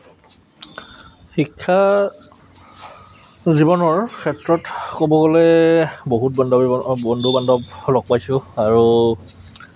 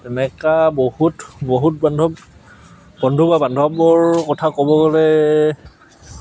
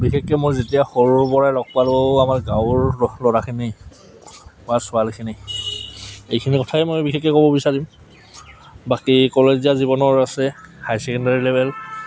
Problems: none marked